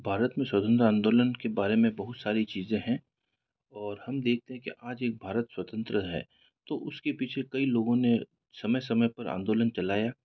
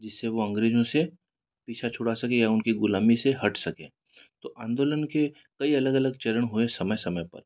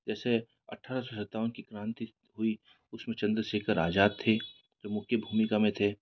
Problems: background sounds at intervals